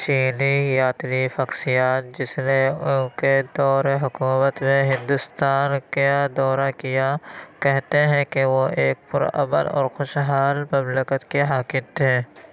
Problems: background sounds at intervals